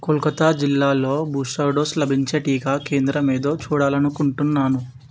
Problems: background sounds at intervals